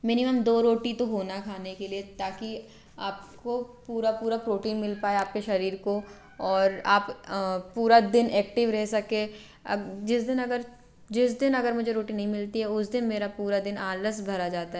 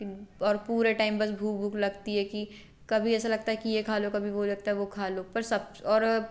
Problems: constant background noise